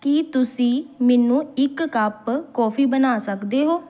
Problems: background sounds at intervals